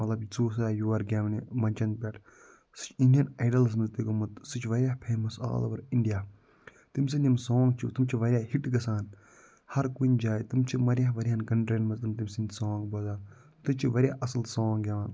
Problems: background sounds at intervals